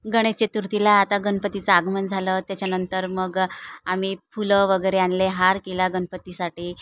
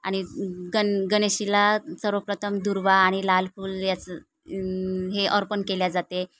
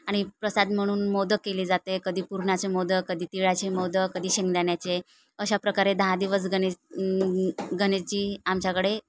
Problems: none marked